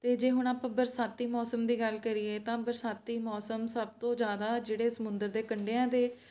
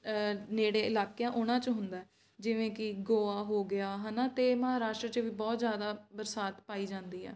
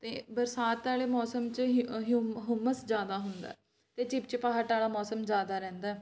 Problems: background sounds at intervals